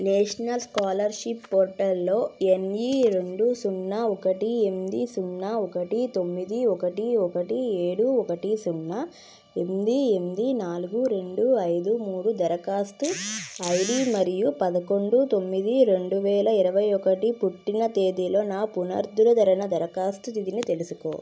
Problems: background sounds at intervals